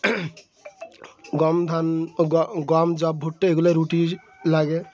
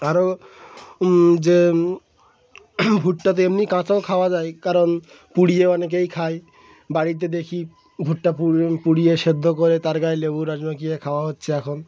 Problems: none marked